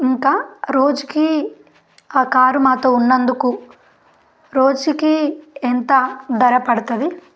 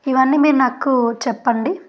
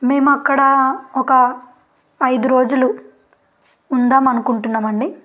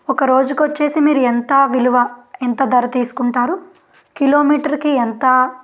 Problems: background sounds at intervals